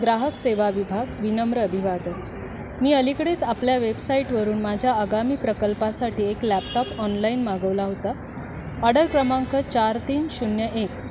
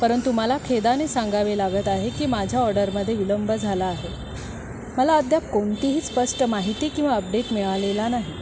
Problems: constant background noise